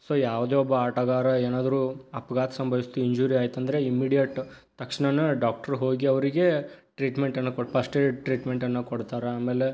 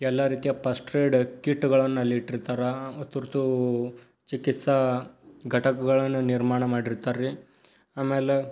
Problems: none marked